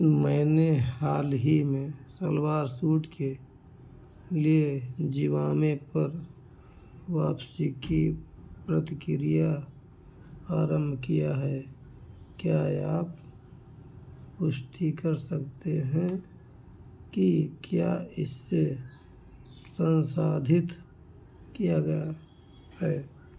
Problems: background sounds at intervals, echo